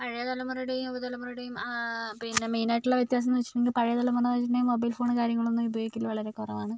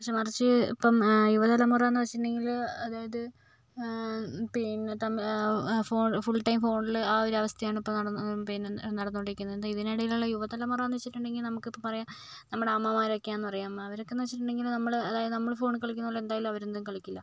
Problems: none marked